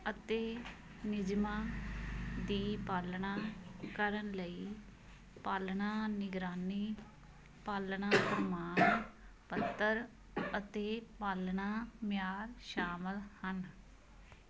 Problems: constant background noise